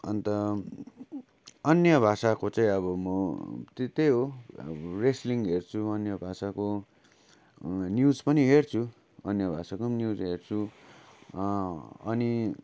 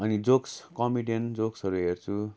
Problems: constant background noise